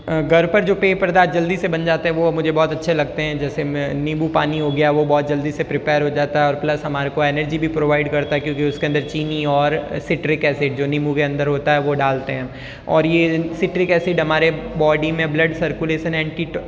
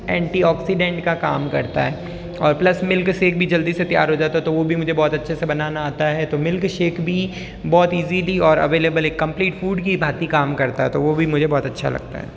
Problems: none marked